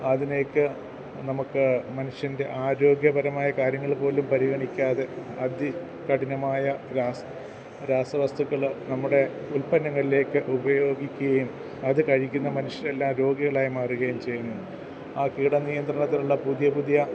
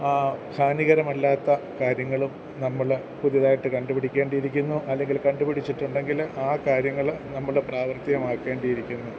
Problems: none marked